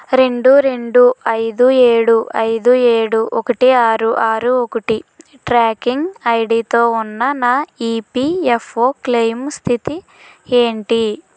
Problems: constant background noise